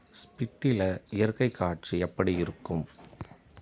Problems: background sounds at intervals